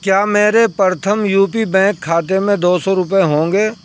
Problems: background sounds at intervals